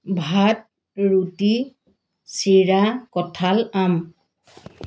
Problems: none marked